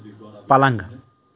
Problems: none marked